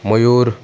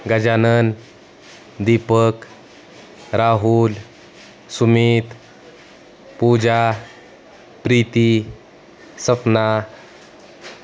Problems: constant background noise, background conversations at intervals